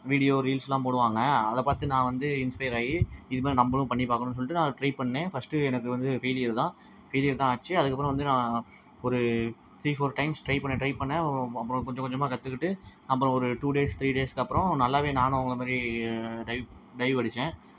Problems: background sounds at intervals